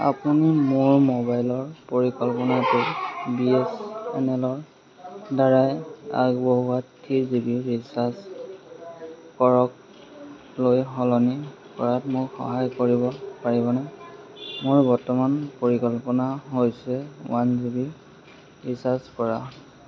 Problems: constant background noise, background conversations at intervals